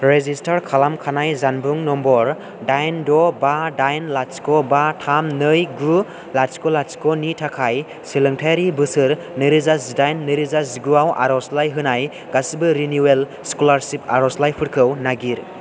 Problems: constant background noise